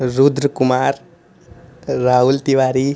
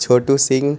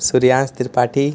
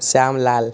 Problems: constant background noise